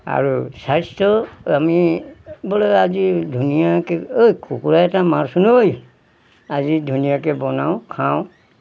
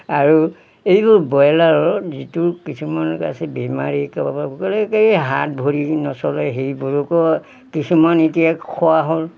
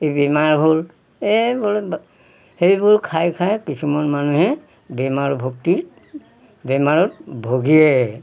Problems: background sounds at intervals